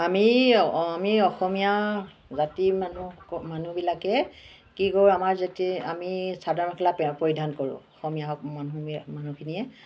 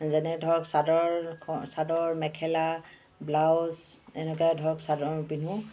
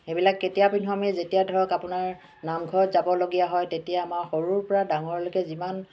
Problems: background sounds at intervals